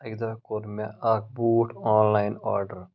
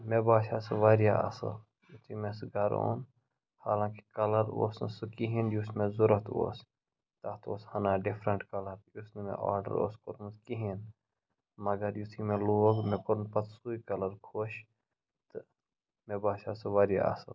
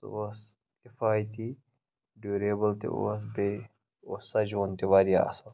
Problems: background sounds at intervals, low volume